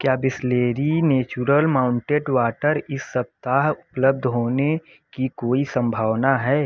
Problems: constant background noise